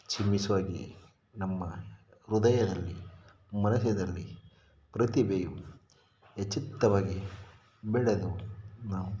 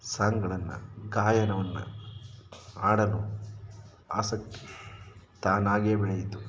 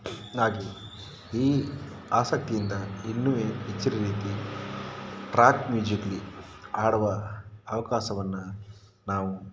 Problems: background sounds at intervals